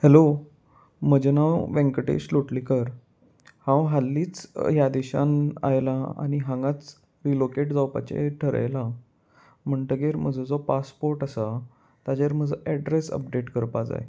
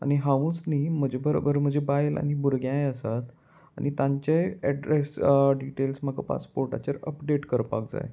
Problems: none marked